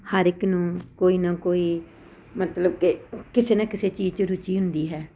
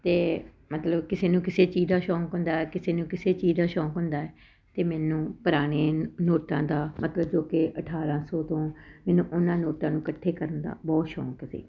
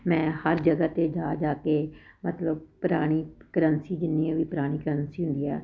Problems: none marked